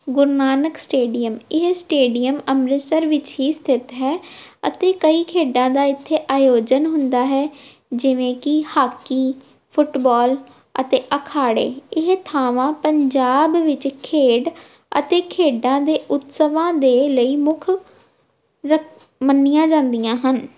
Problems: background sounds at intervals